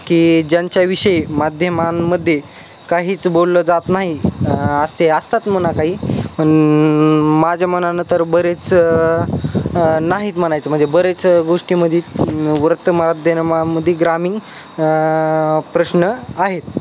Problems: constant background noise